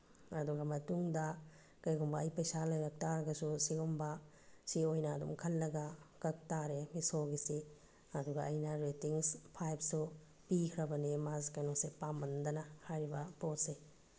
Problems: low volume